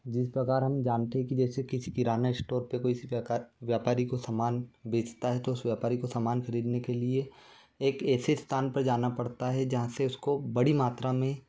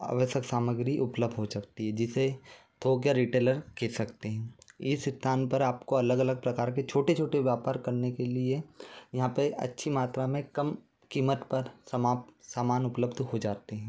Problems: none marked